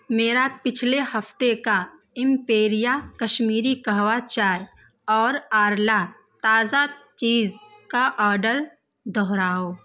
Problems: constant background noise